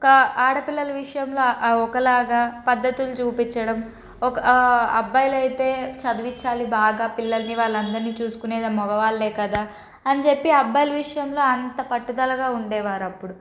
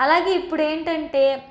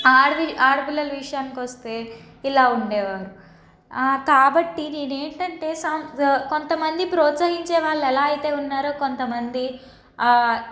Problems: none marked